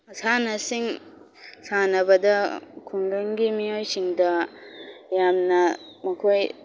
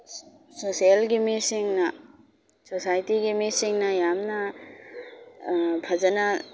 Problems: background sounds at intervals